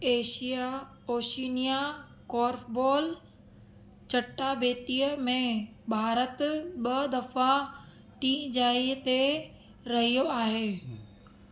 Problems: none marked